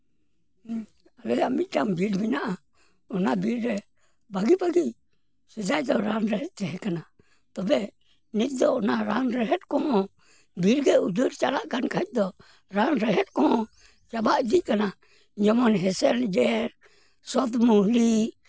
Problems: background sounds at intervals